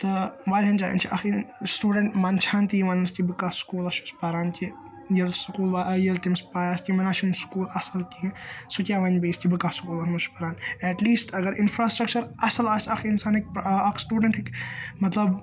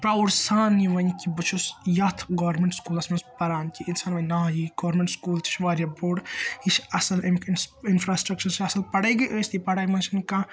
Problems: constant background noise